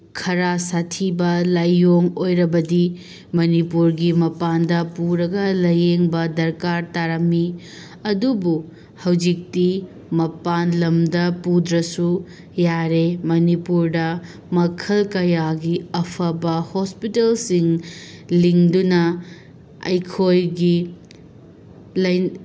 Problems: none marked